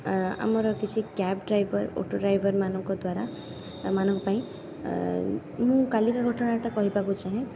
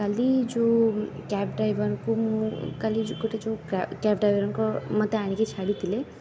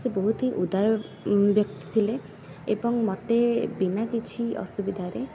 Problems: constant background noise